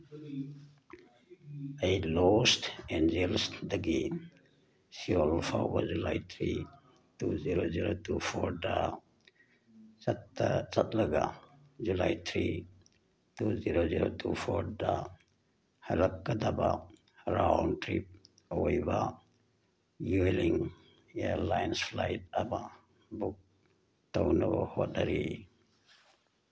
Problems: background sounds at intervals